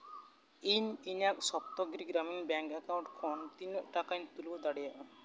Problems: none marked